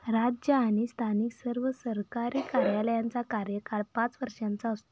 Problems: background sounds at intervals, low volume